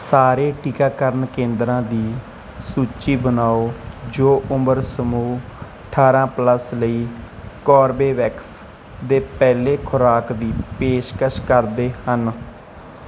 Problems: none marked